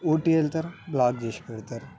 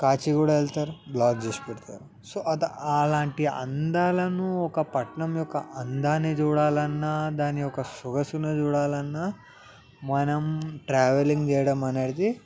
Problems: background sounds at intervals, background conversations at intervals